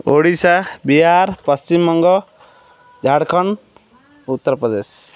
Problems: none marked